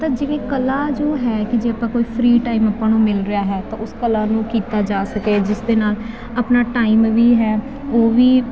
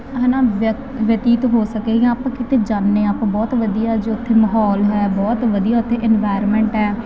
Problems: constant background noise